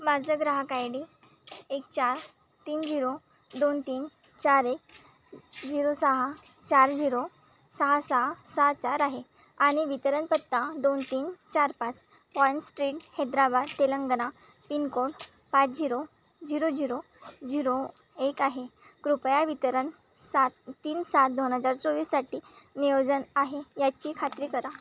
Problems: constant background noise, continuous background conversations